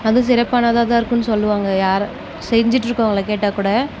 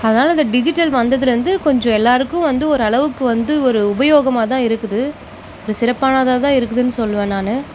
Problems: background sounds at intervals